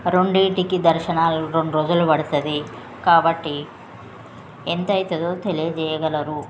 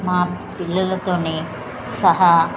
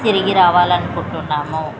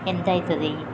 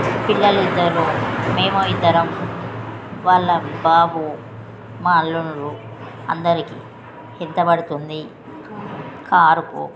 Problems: constant background noise, background conversations at intervals